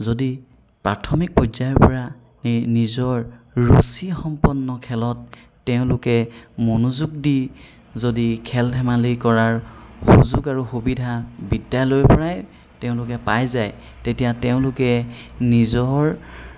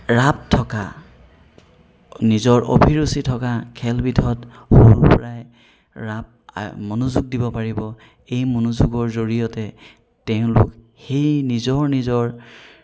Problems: background sounds at intervals